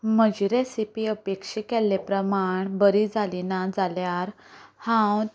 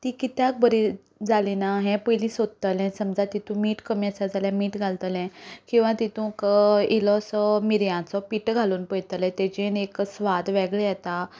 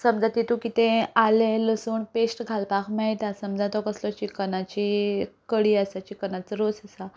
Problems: none marked